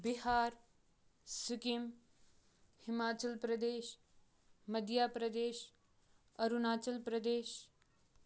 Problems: background sounds at intervals